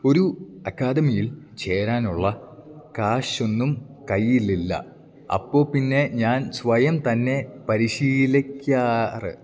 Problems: none marked